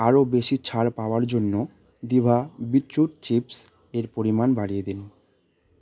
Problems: none marked